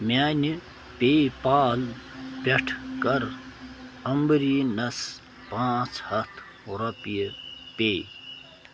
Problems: constant background noise